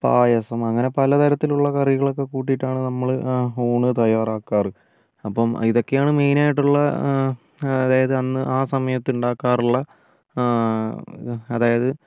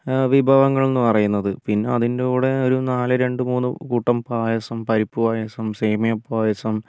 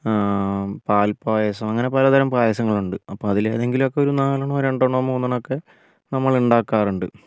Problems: low volume